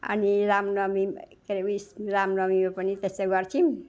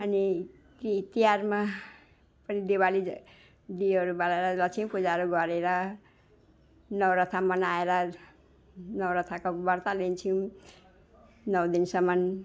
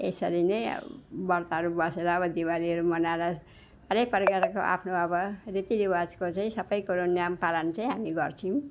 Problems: none marked